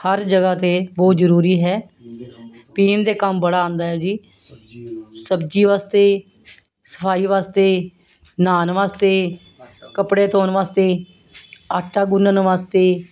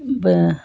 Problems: constant background noise